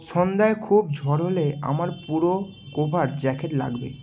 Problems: constant background noise